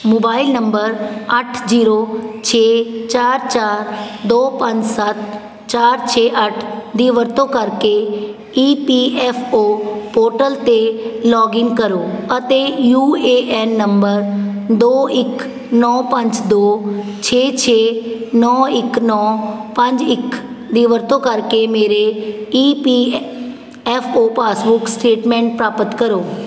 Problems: constant background noise